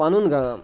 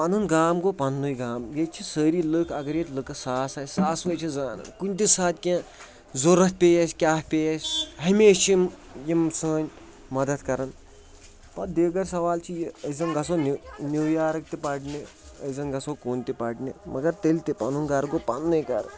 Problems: background sounds at intervals, background conversations at intervals